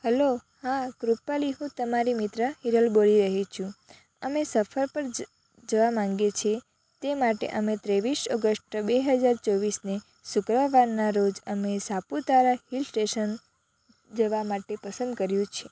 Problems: constant background noise